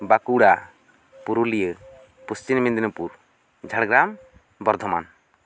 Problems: none marked